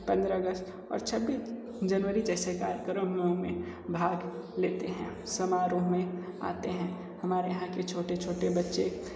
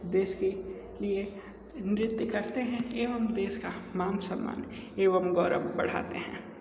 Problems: none marked